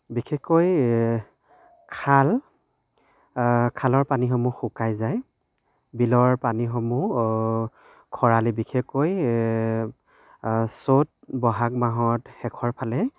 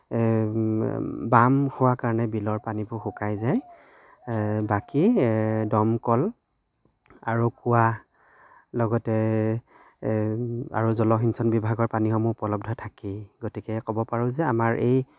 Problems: background sounds at intervals